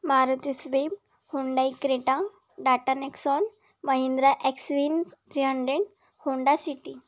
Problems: background sounds at intervals